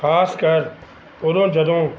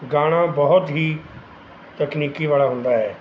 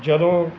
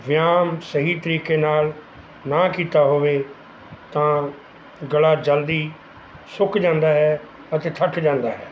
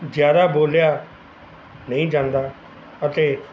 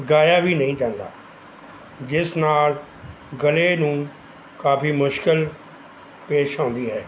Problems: background sounds at intervals